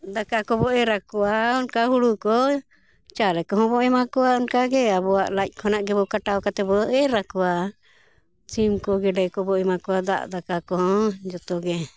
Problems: none marked